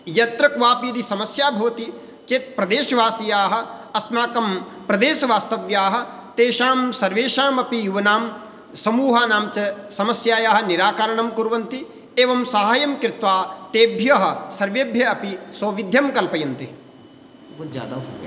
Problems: background conversations at intervals